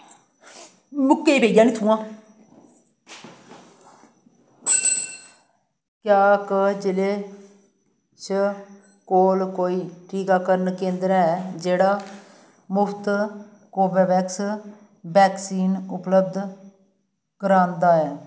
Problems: constant background noise